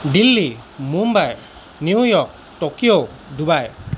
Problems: background sounds at intervals